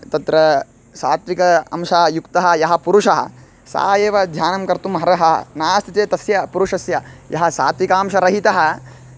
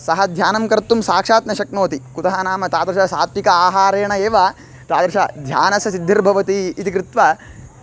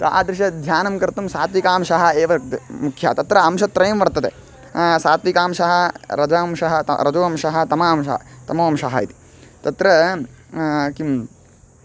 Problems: background sounds at intervals